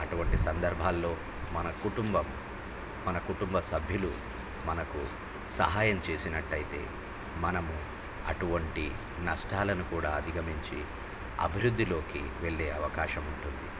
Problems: low volume